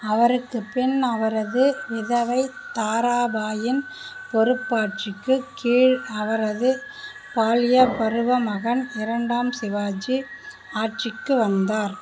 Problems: none marked